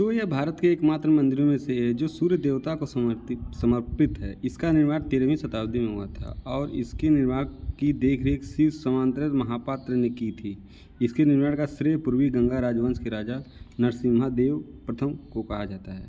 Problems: none marked